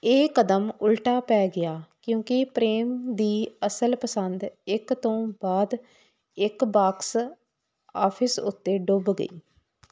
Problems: none marked